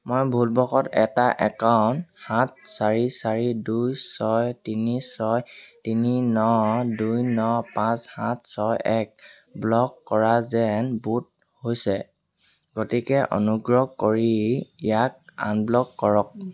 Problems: constant background noise